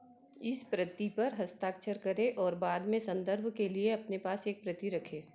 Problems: background sounds at intervals